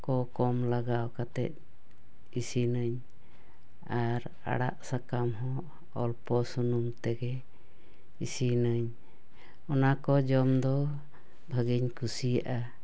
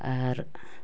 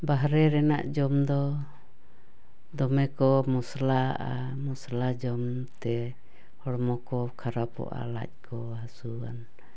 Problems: none marked